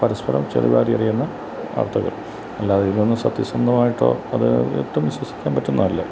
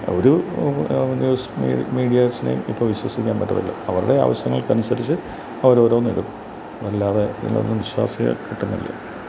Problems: constant background noise